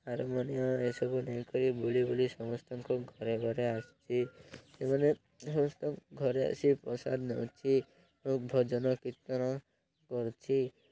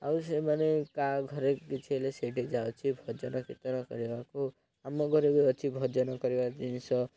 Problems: low volume